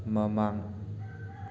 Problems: constant background noise